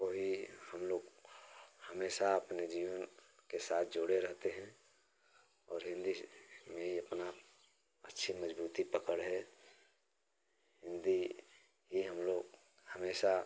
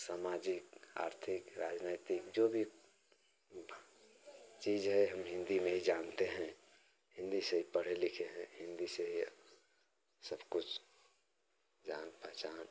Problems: none marked